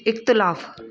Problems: constant background noise